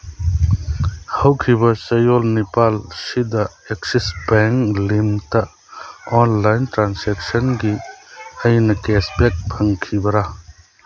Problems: background sounds at intervals